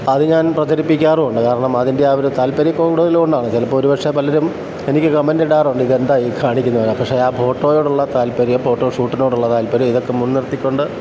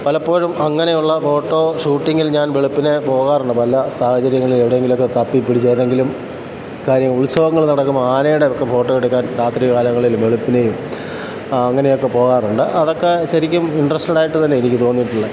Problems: constant background noise